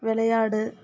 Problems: background conversations at intervals